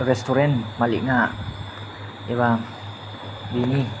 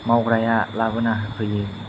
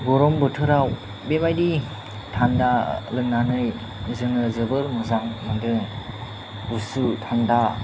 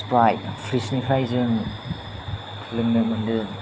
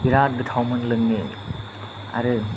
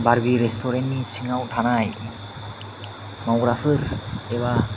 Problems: low volume